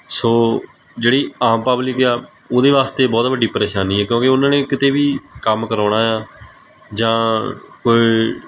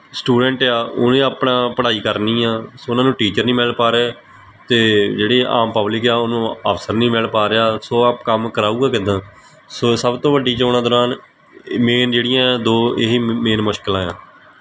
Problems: background sounds at intervals